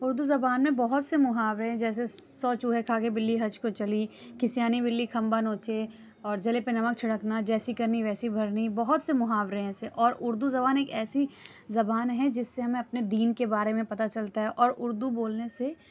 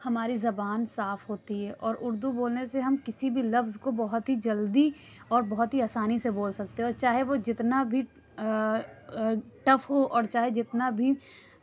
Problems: none marked